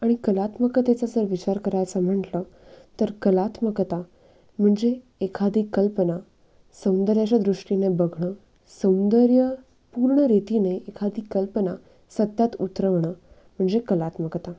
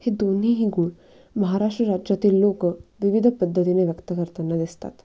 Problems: background sounds at intervals